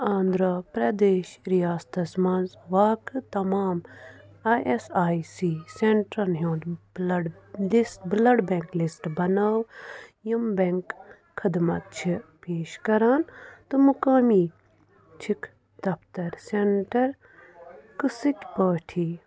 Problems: background sounds at intervals, background conversations at intervals